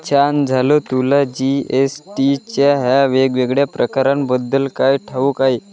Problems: background sounds at intervals, continuous background conversations